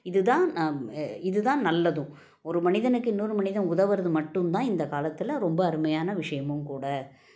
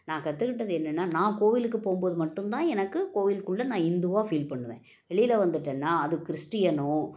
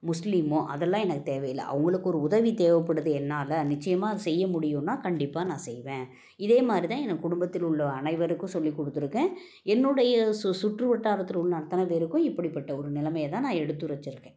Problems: background sounds at intervals